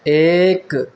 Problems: constant background noise